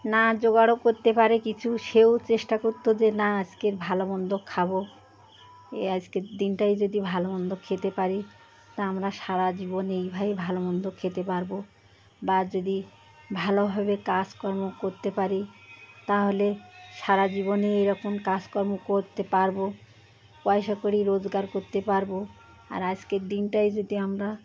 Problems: constant background noise, background conversations at intervals